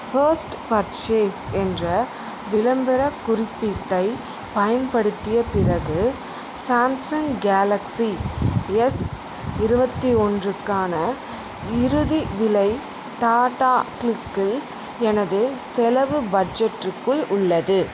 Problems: constant background noise